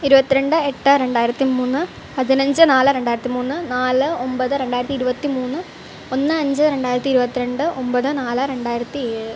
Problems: constant background noise